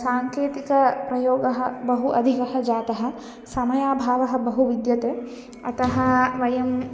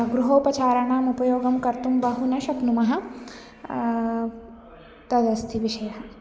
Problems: background sounds at intervals